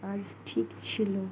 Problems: none marked